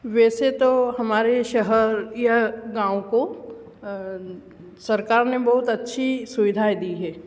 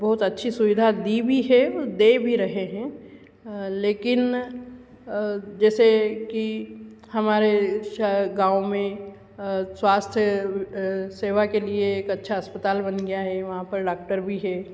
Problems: none marked